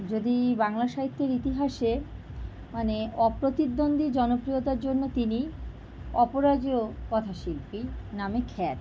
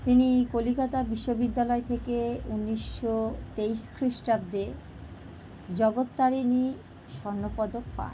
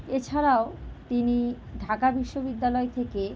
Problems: background sounds at intervals